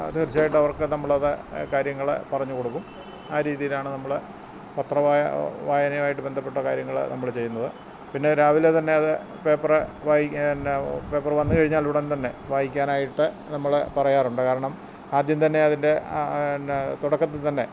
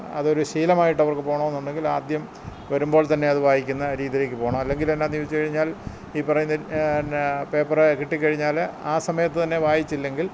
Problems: none marked